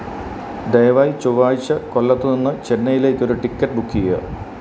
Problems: constant background noise